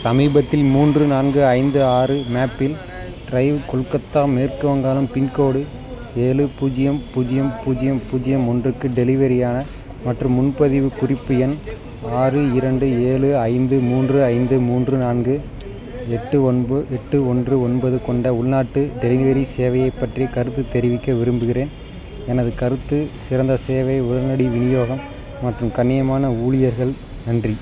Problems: background sounds at intervals, background conversations at intervals